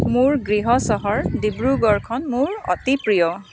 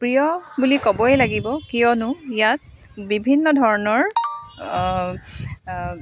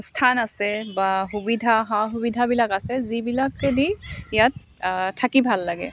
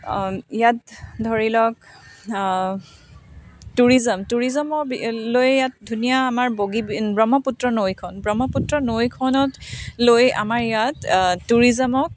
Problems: none marked